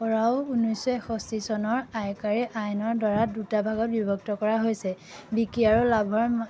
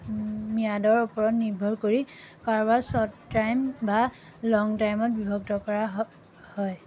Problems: background sounds at intervals